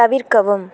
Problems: constant background noise